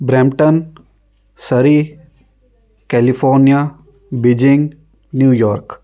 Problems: none marked